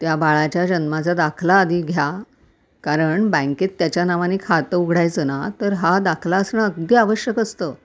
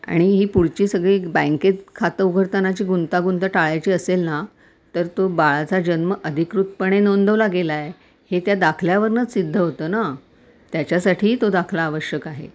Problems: background sounds at intervals